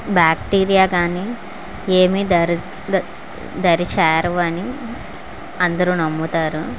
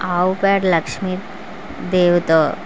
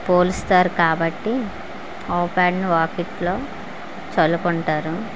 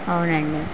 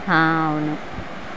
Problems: constant background noise